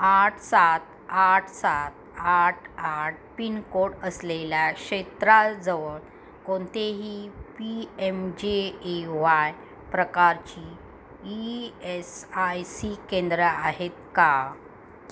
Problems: constant background noise